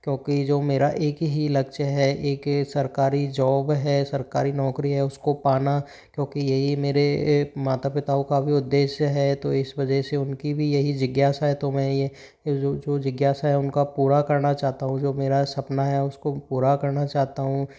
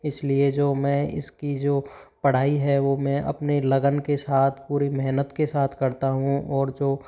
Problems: none marked